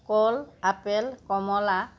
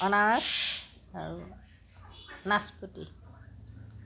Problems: constant background noise, background conversations at intervals